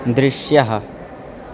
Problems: constant background noise